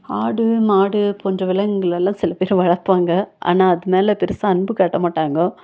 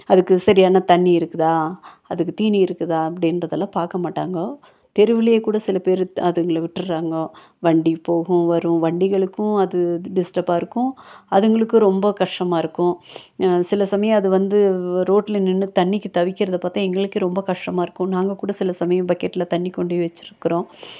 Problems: none marked